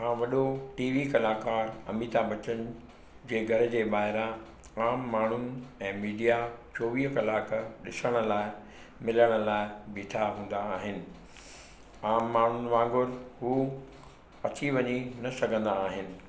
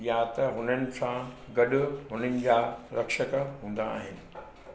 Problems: constant background noise, echo